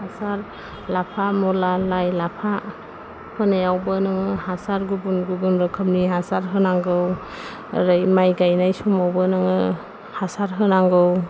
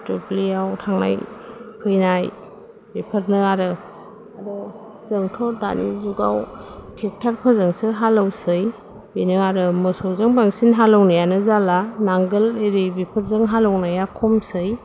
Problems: none marked